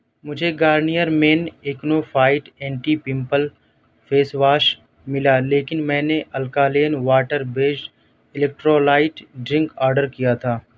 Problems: none marked